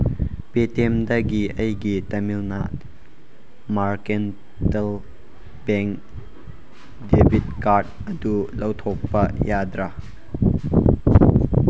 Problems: background sounds at intervals